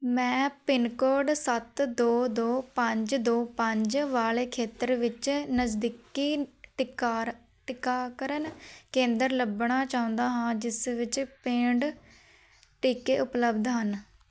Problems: none marked